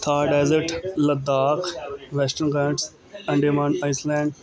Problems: continuous background conversations